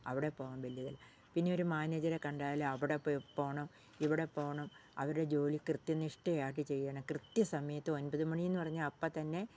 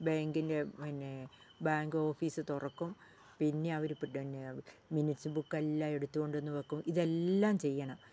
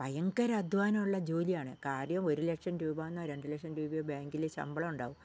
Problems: low volume